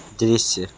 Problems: constant background noise